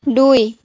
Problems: background sounds at intervals